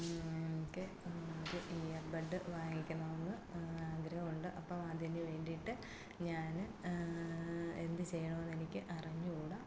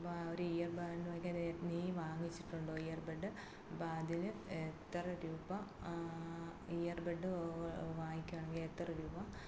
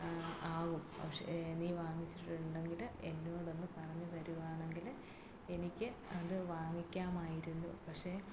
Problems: low volume